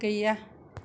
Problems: none marked